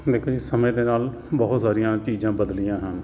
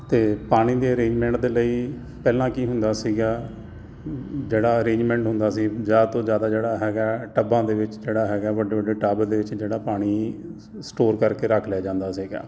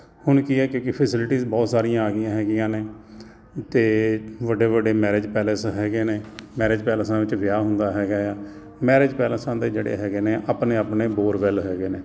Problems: constant background noise